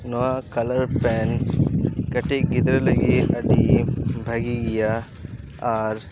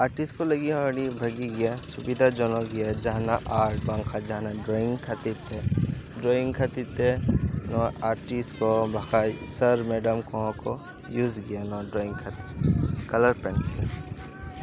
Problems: background sounds at intervals, background conversations at intervals